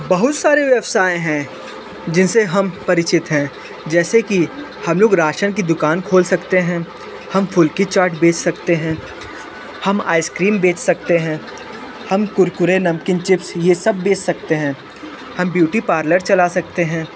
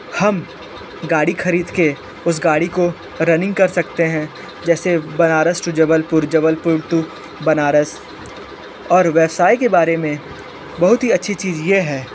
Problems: constant background noise